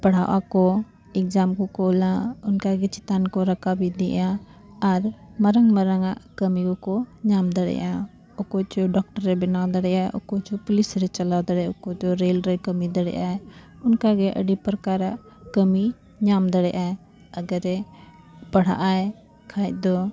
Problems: constant background noise, background conversations at intervals